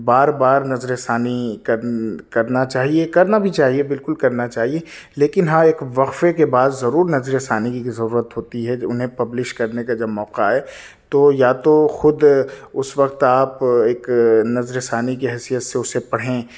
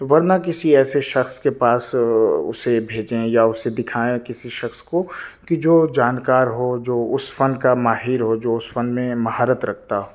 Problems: none marked